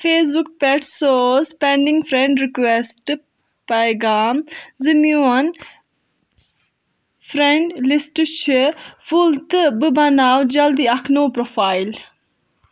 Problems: background sounds at intervals